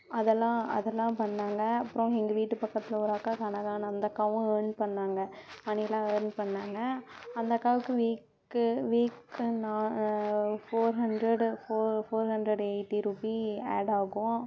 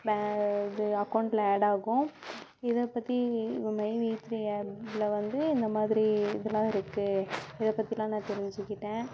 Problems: low volume